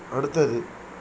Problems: constant background noise